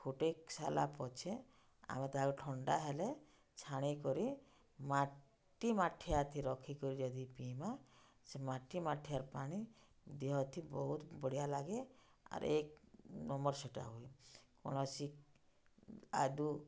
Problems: low volume